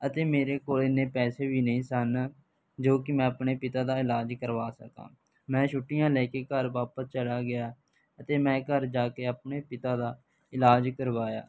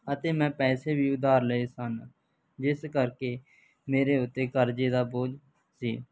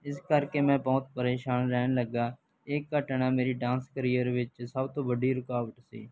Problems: background sounds at intervals